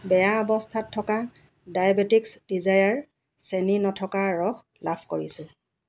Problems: none marked